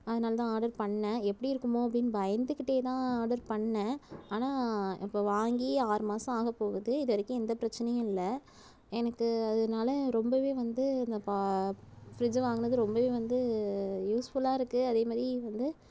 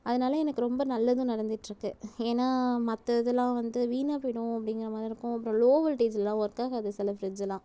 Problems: none marked